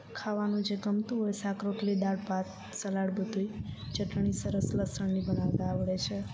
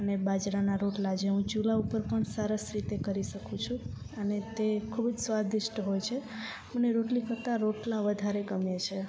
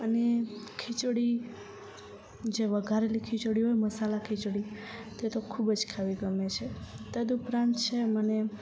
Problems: none marked